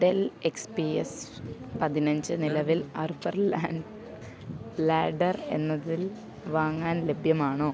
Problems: background sounds at intervals